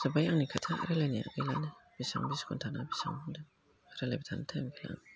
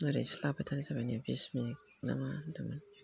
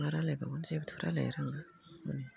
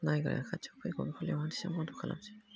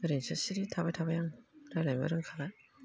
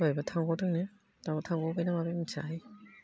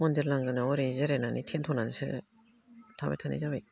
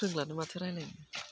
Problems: low volume